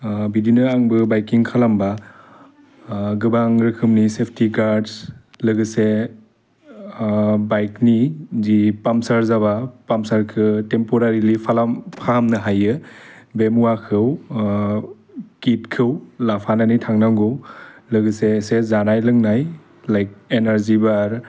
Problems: none marked